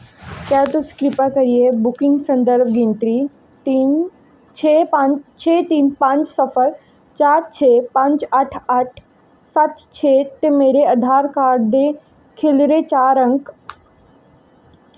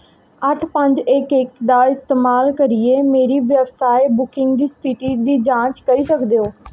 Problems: echo